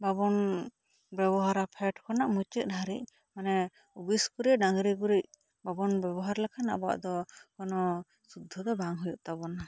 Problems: none marked